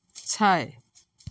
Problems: none marked